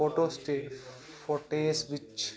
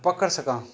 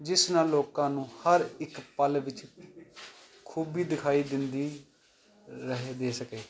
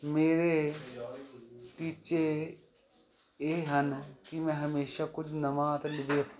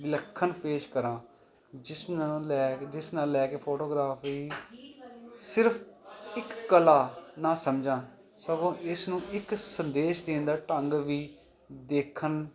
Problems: continuous background conversations